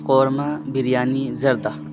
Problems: constant background noise